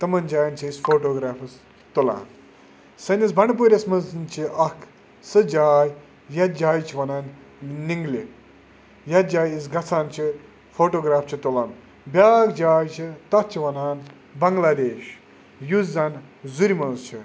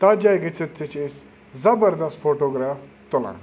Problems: none marked